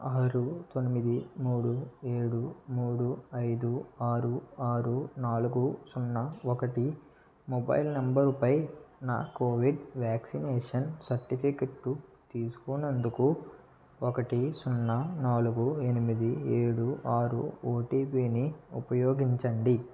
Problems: low volume